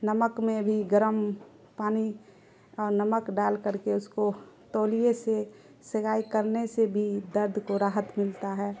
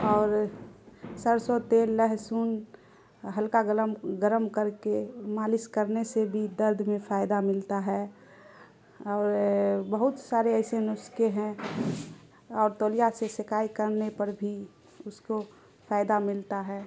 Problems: constant background noise